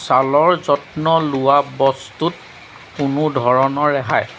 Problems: background sounds at intervals